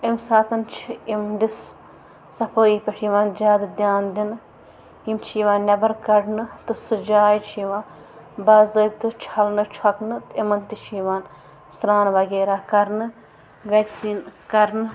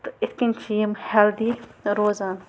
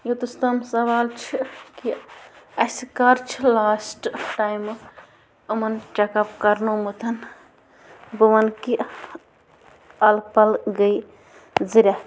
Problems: background sounds at intervals